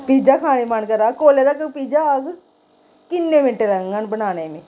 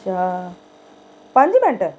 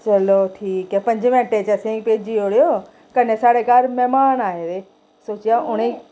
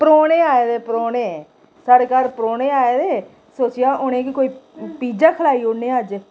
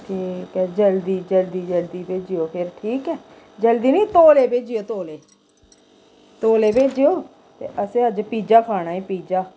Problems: constant background noise, echo